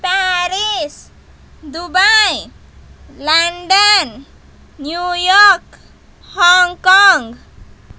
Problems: constant background noise